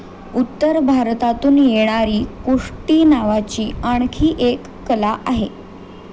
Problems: constant background noise